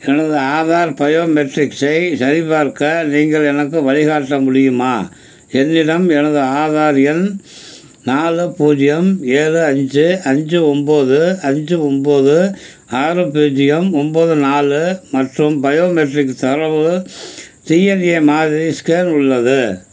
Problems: none marked